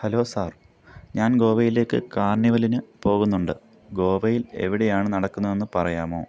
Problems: background sounds at intervals